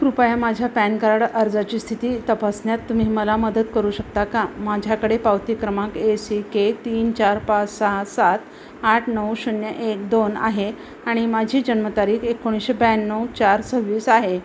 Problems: none marked